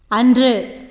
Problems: constant background noise